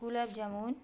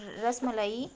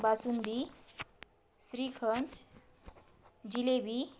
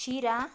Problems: constant background noise